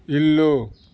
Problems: constant background noise